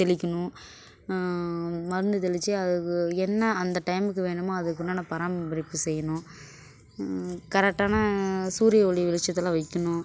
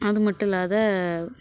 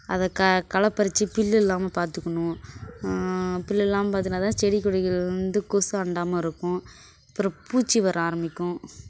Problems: constant background noise, background conversations at intervals